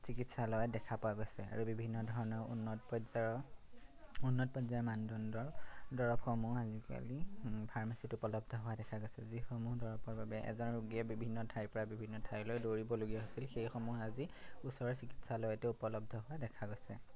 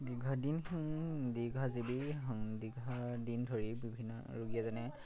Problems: background sounds at intervals